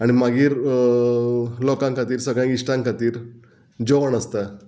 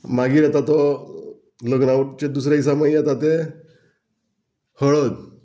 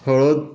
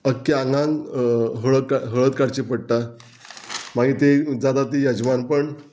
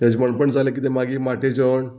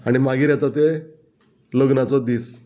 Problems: background sounds at intervals